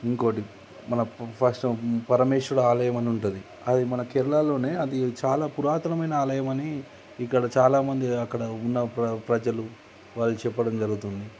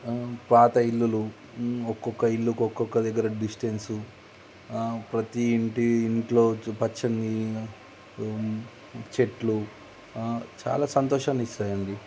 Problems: none marked